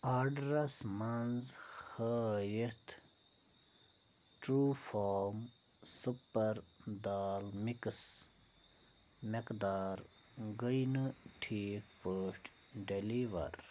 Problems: low volume